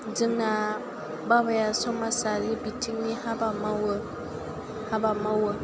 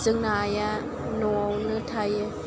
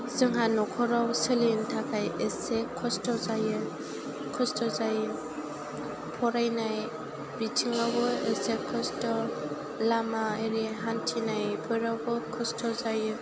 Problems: none marked